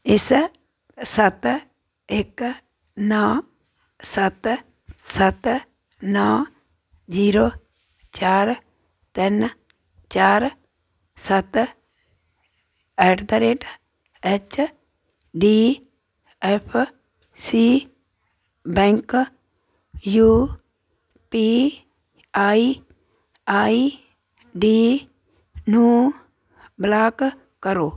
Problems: none marked